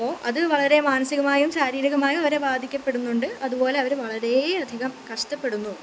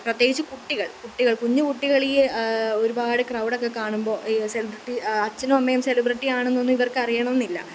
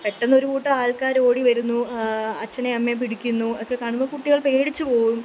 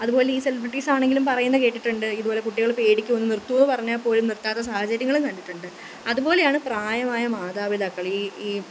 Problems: none marked